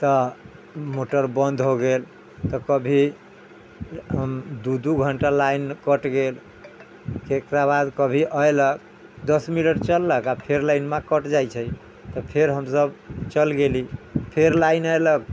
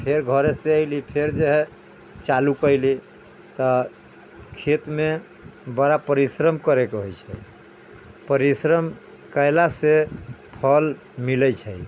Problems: background sounds at intervals